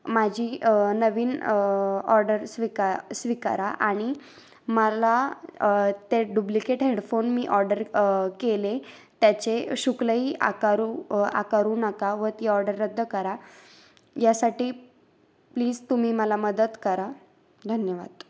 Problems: background sounds at intervals